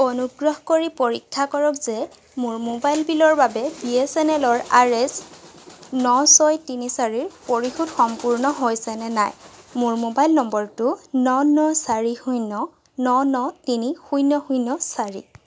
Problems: constant background noise